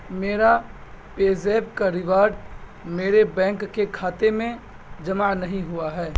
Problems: none marked